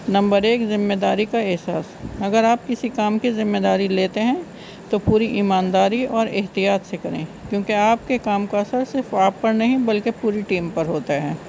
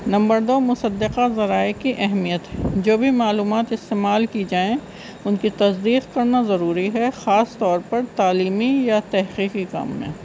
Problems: constant background noise